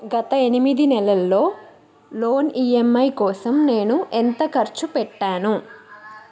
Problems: continuous background conversations